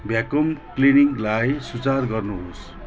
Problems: constant background noise